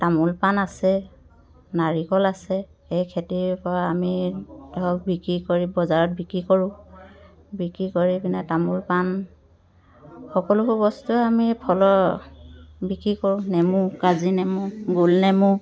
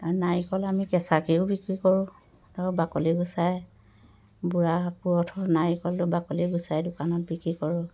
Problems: background conversations at intervals